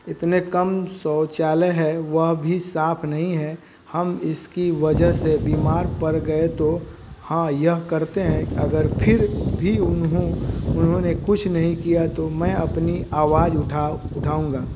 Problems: constant background noise